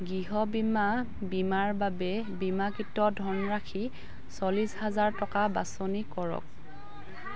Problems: continuous background conversations